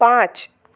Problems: constant background noise, echo